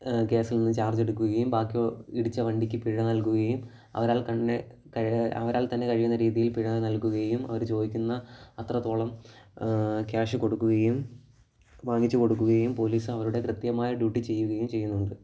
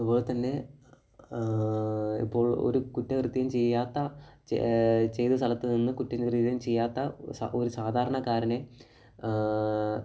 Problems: low volume